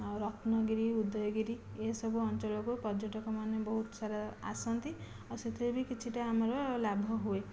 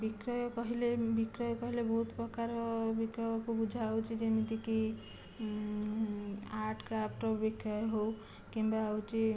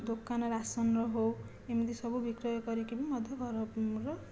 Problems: low volume